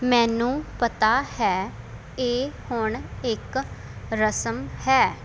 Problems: constant background noise